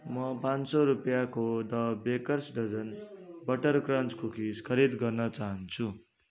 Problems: continuous background conversations